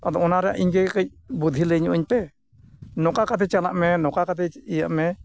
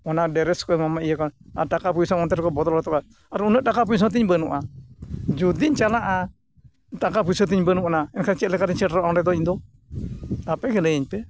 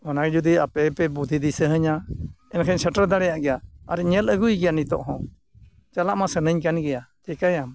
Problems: constant background noise